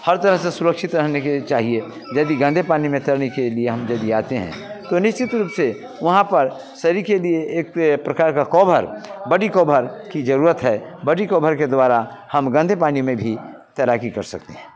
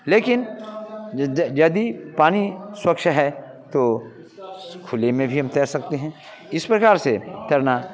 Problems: none marked